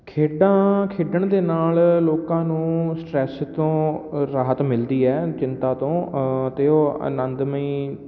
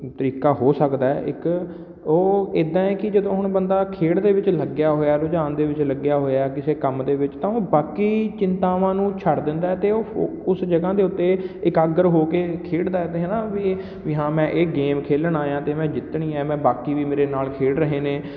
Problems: none marked